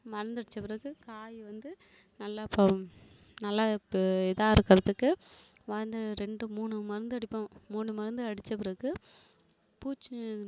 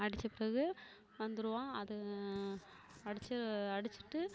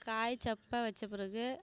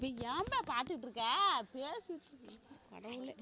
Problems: background conversations at intervals, low volume